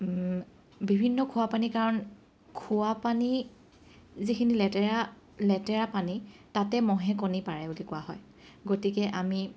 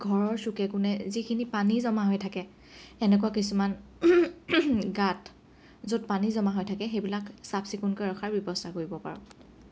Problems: none marked